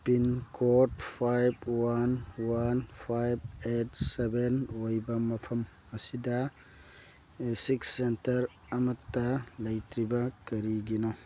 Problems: background sounds at intervals